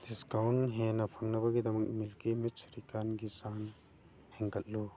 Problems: background sounds at intervals, low volume